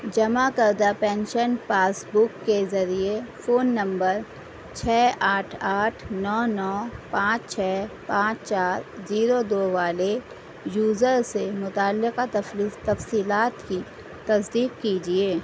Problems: constant background noise